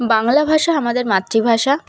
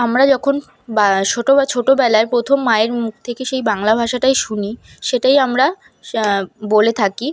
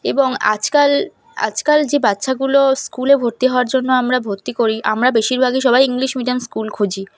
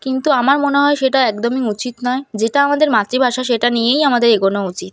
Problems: none marked